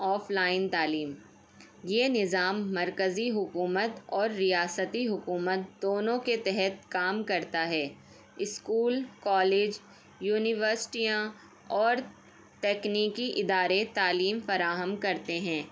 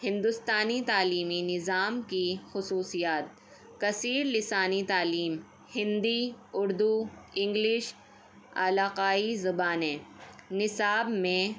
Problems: none marked